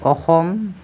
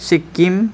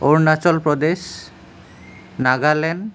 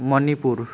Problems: constant background noise